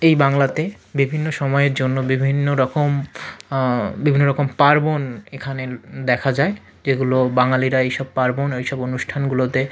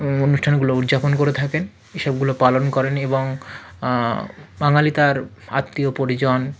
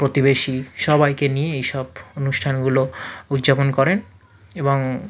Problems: none marked